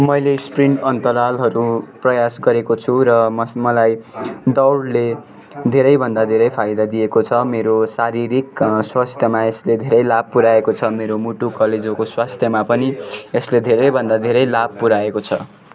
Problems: continuous background conversations